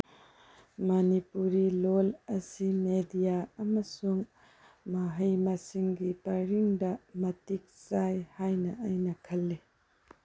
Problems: low volume